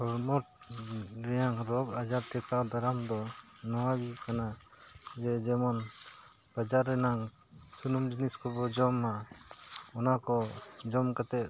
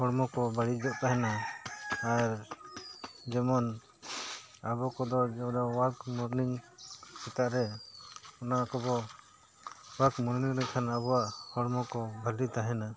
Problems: background sounds at intervals